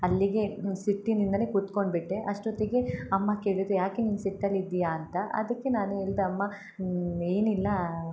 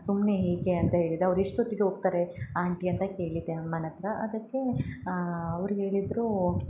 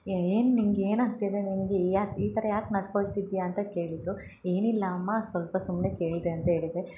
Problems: none marked